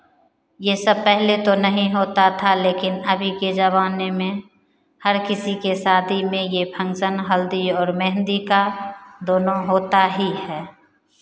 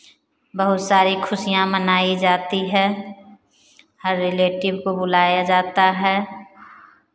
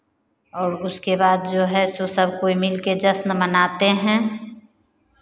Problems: constant background noise